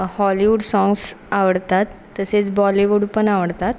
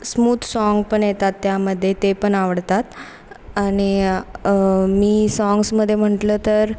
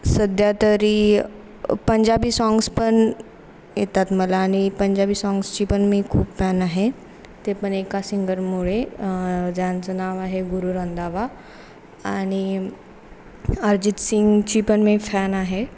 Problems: constant background noise